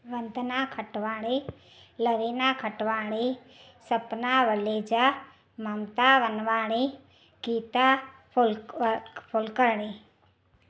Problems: none marked